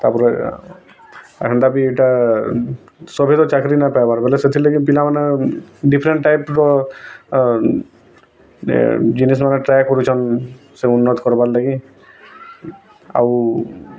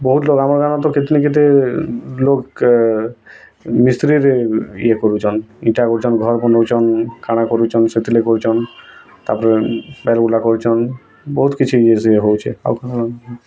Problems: constant background noise, continuous background conversations